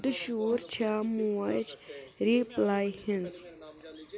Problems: background sounds at intervals, background conversations at intervals